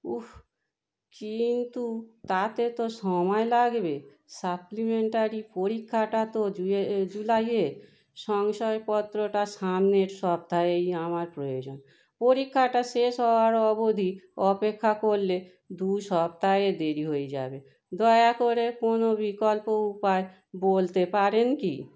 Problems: constant background noise